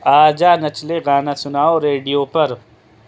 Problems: constant background noise